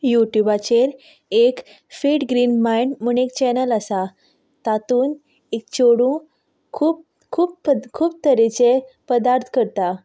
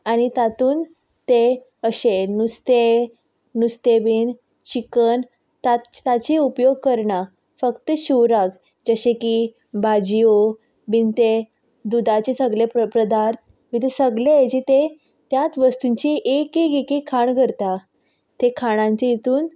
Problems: background sounds at intervals